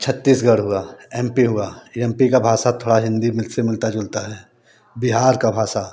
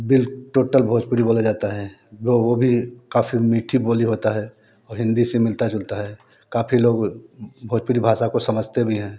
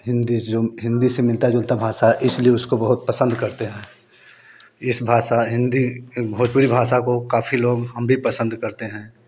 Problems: constant background noise